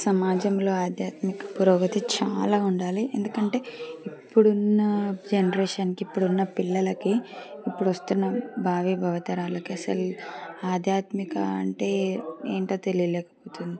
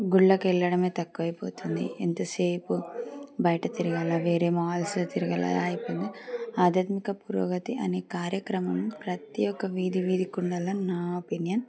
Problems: background sounds at intervals